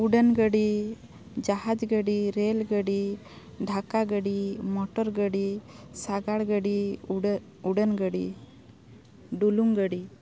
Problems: none marked